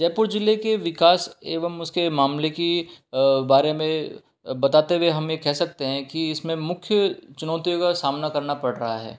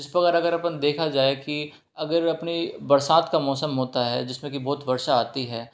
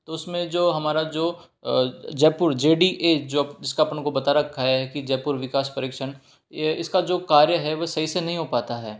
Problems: none marked